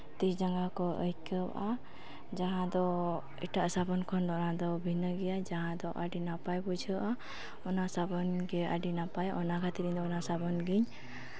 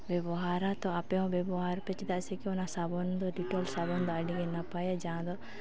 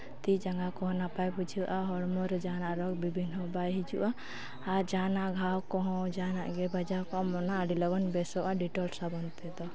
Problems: background conversations at intervals